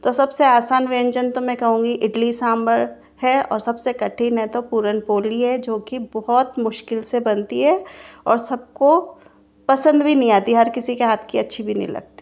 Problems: constant background noise